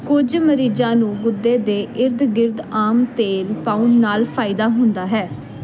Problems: none marked